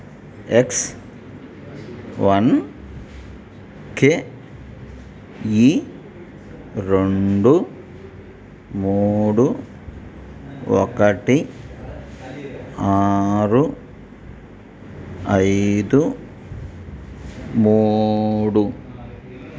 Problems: none marked